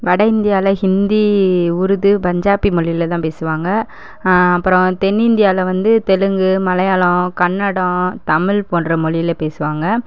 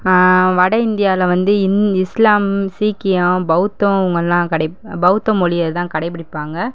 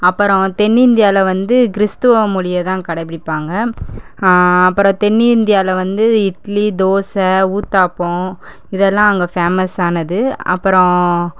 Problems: none marked